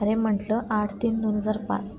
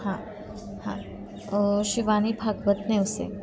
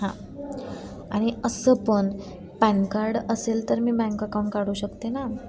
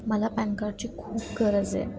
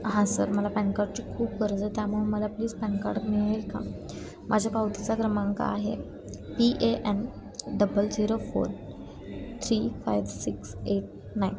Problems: constant background noise